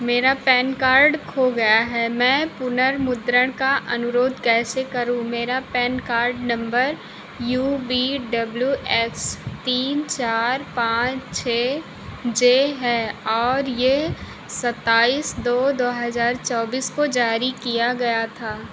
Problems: constant background noise